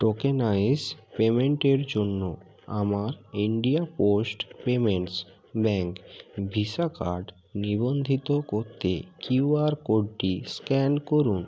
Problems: none marked